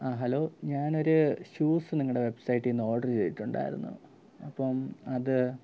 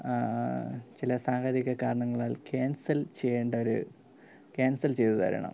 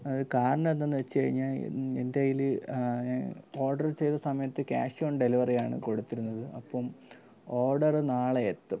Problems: low volume